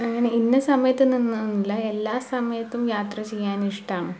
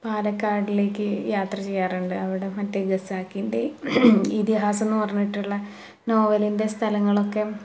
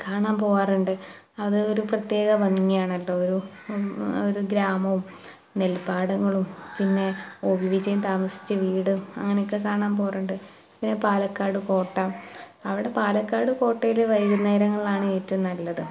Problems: none marked